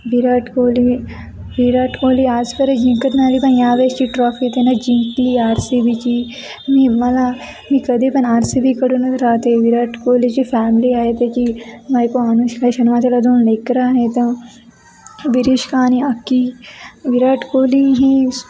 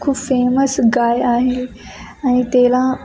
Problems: none marked